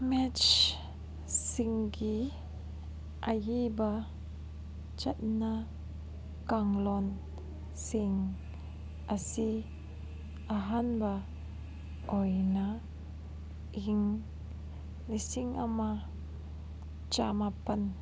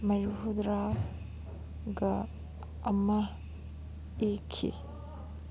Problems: constant background noise